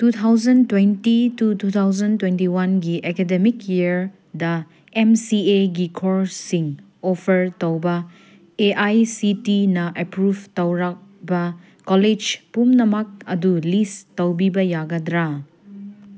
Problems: none marked